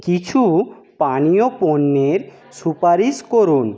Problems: none marked